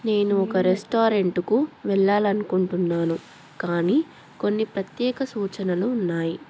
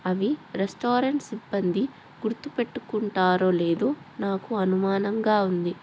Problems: background conversations at intervals